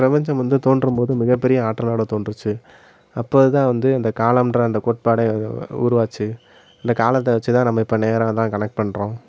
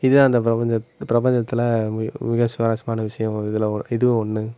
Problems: constant background noise